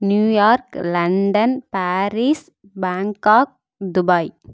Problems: none marked